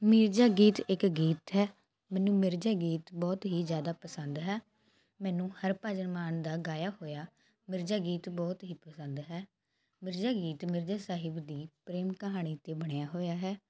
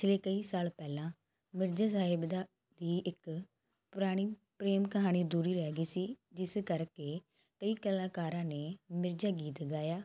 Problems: constant background noise